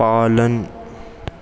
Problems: constant background noise, echo